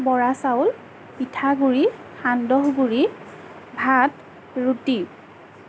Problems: none marked